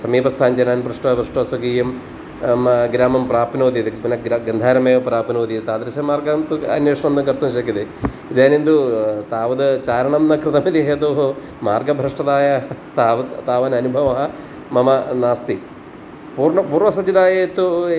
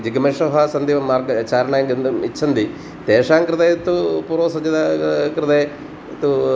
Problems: constant background noise